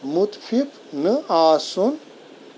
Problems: constant background noise